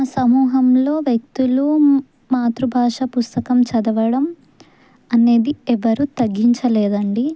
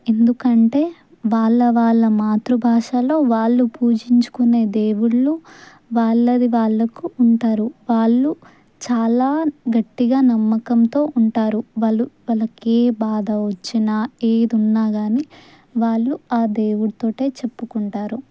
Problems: none marked